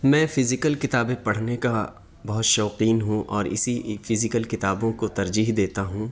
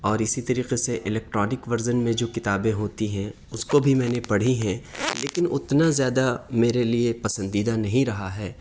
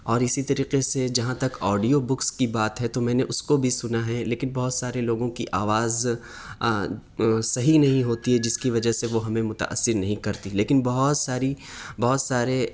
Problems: none marked